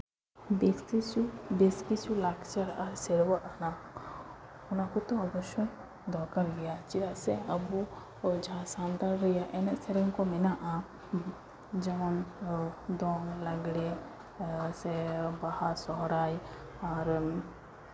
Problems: none marked